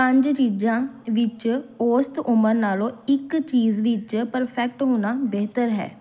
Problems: background sounds at intervals